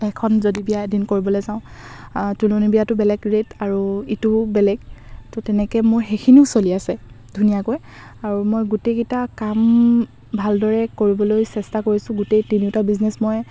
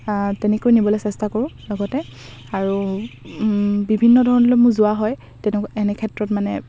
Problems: none marked